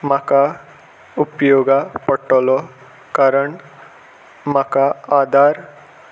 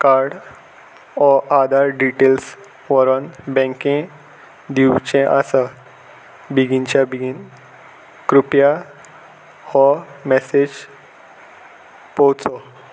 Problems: none marked